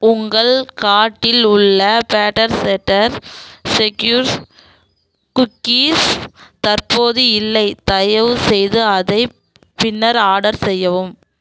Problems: background sounds at intervals